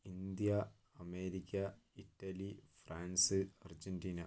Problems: low volume